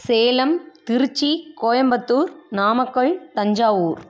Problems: constant background noise